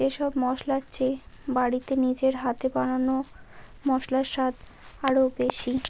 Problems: constant background noise